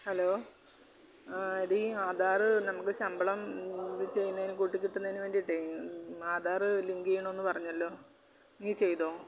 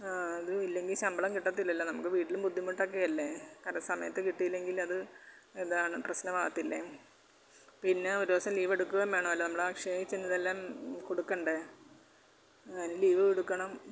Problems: background sounds at intervals